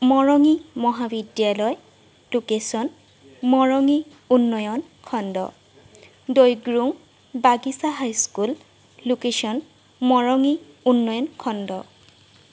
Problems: background sounds at intervals